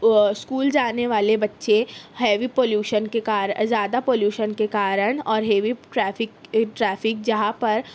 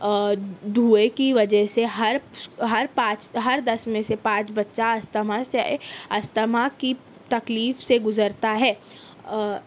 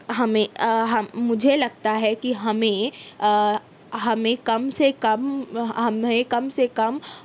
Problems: none marked